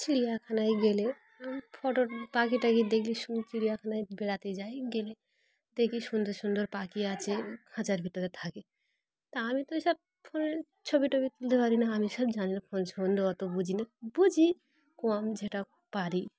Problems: background sounds at intervals